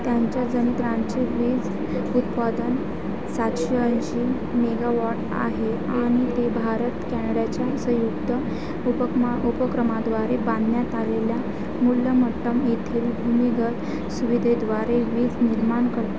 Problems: constant background noise, continuous background conversations